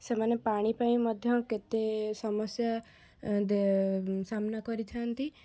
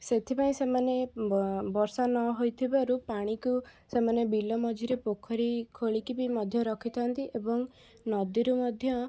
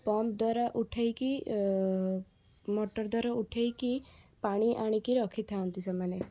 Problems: background conversations at intervals